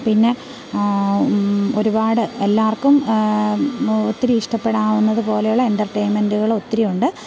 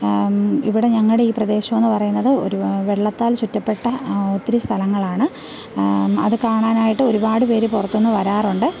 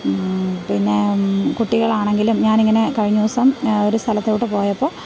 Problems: background sounds at intervals